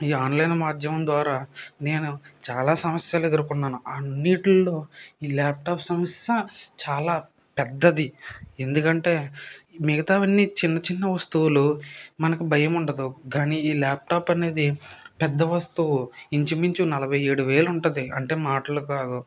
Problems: none marked